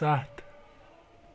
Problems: background sounds at intervals